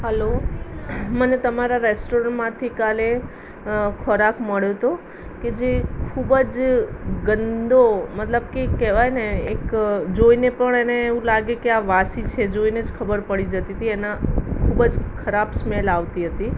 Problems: constant background noise